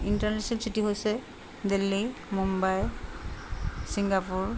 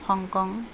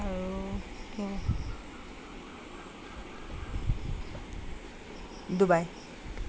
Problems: constant background noise